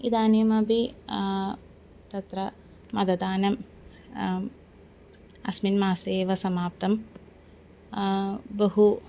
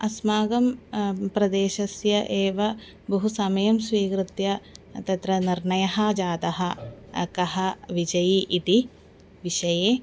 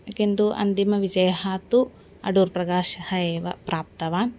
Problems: constant background noise